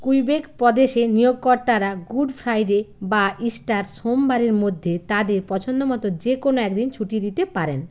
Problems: none marked